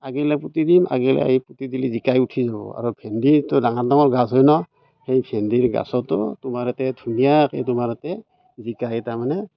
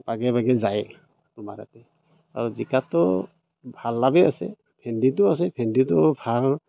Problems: none marked